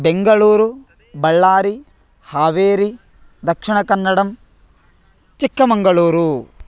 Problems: constant background noise, background conversations at intervals